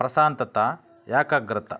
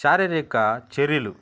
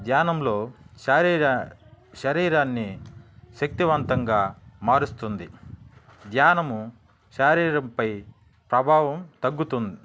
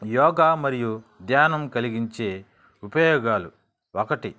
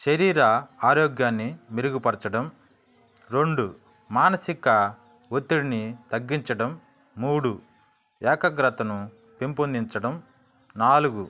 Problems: background sounds at intervals